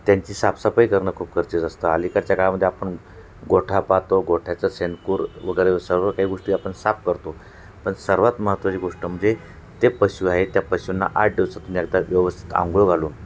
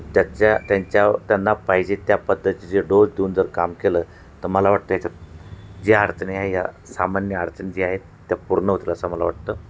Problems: constant background noise